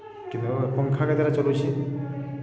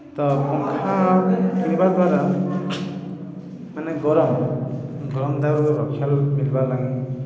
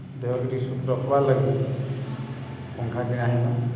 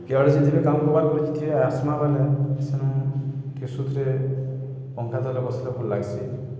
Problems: none marked